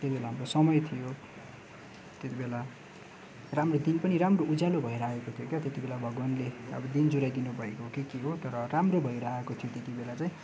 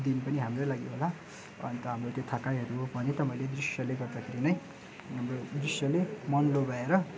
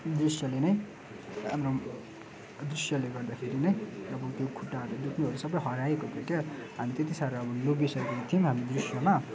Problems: none marked